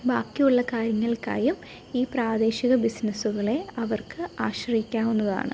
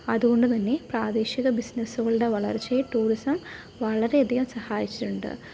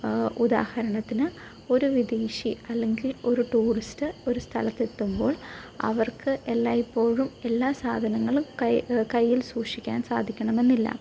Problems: none marked